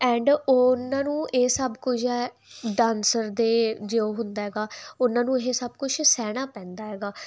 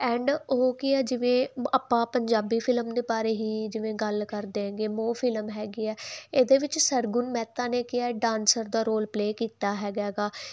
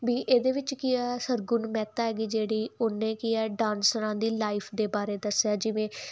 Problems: constant background noise